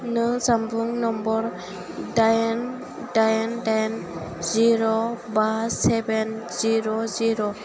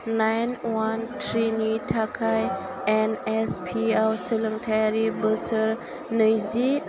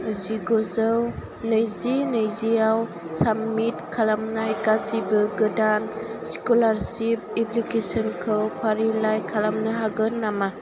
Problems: none marked